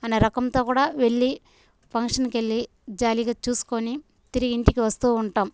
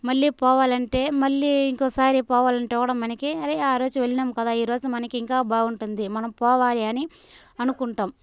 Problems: constant background noise